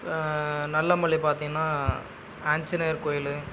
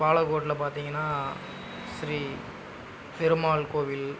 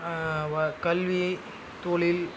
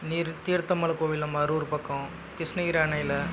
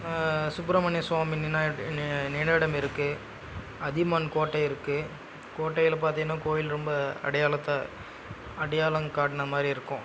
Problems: background sounds at intervals